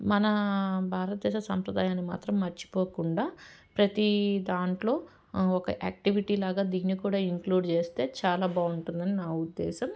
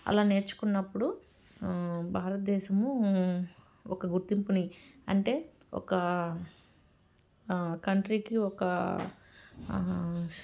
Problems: background sounds at intervals